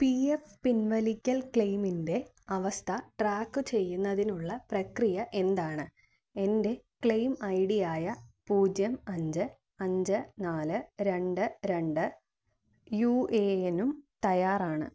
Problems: low volume